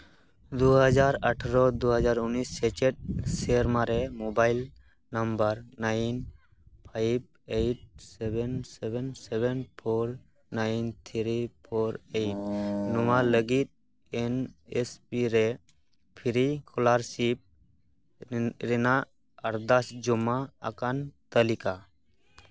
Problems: background sounds at intervals, background conversations at intervals